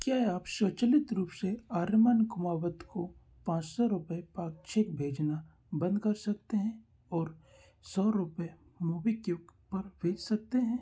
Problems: background sounds at intervals